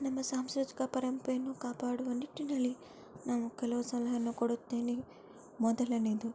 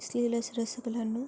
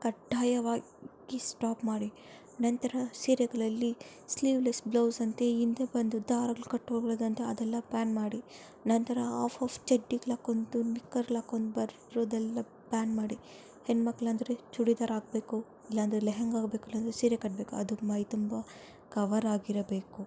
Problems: background sounds at intervals, low volume